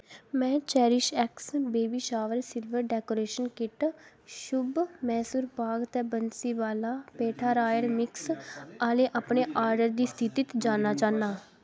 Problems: constant background noise